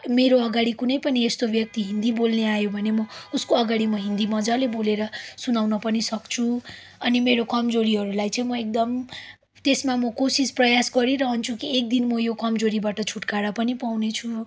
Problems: constant background noise